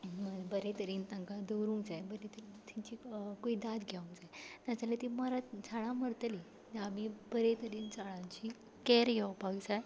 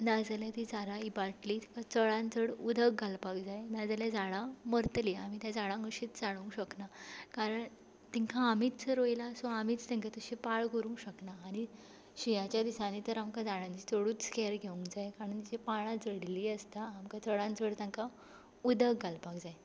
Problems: background sounds at intervals